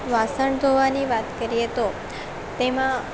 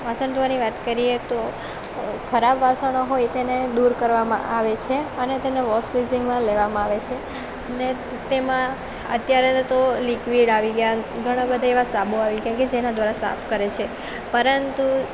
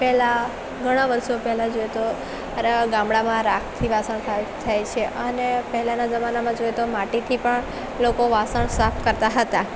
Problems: constant background noise